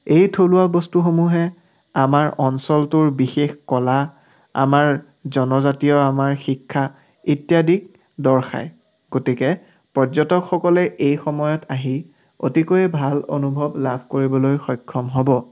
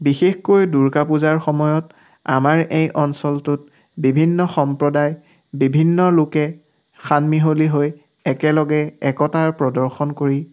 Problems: background sounds at intervals